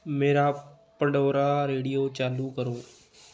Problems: background conversations at intervals